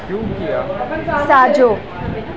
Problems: constant background noise, continuous background conversations